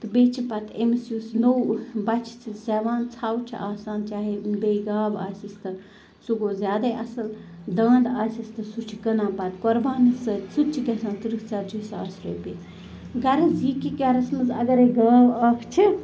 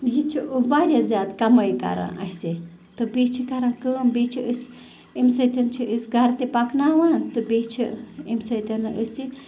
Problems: constant background noise